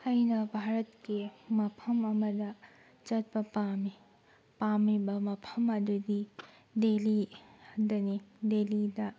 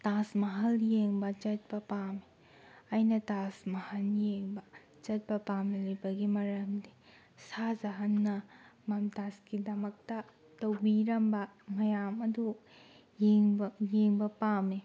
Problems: background sounds at intervals